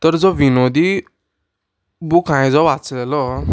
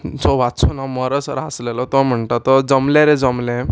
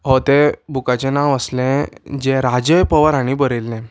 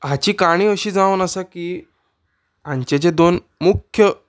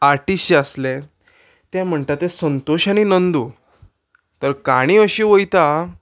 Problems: background sounds at intervals